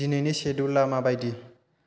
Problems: constant background noise